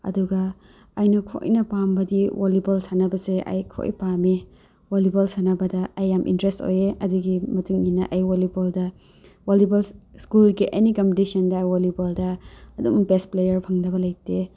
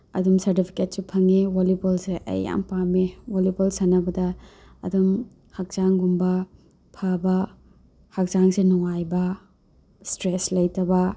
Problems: none marked